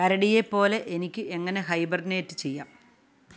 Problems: none marked